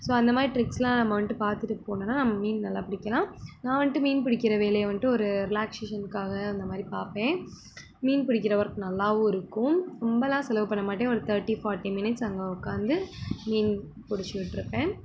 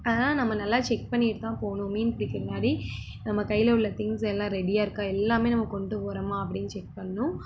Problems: constant background noise